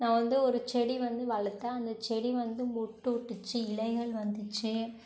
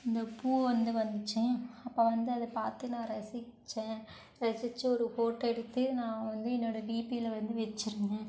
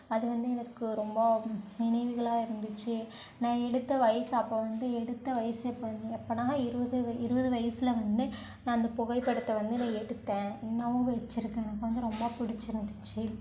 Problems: none marked